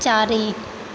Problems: constant background noise